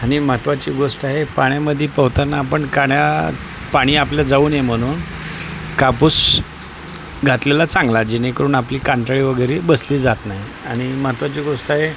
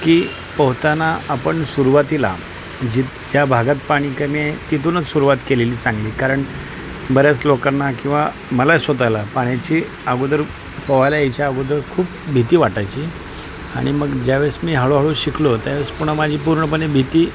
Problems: constant background noise, continuous background conversations